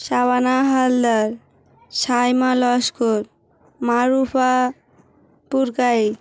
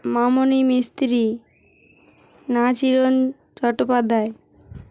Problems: constant background noise, background conversations at intervals